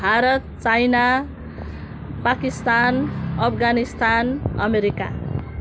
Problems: background sounds at intervals